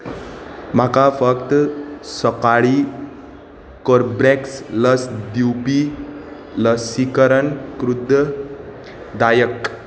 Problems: constant background noise